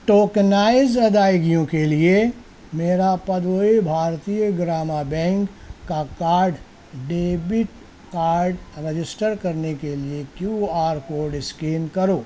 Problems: none marked